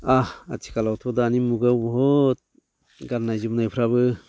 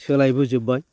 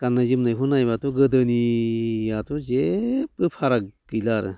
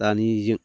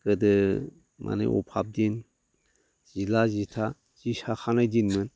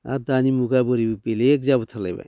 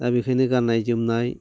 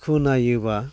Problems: none marked